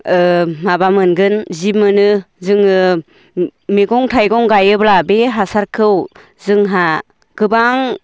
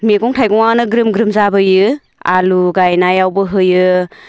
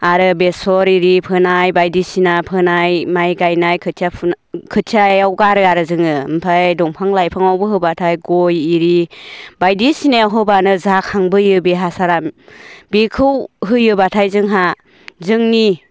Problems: none marked